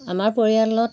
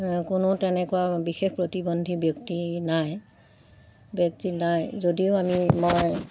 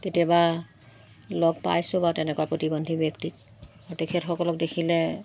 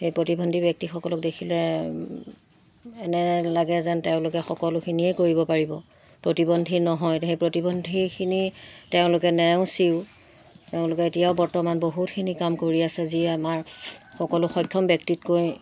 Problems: constant background noise